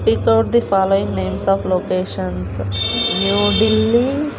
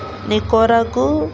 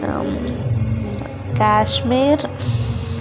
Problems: constant background noise